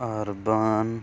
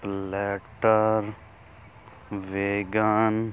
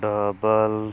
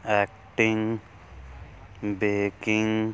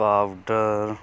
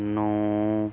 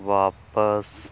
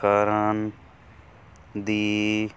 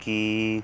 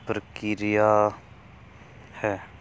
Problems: none marked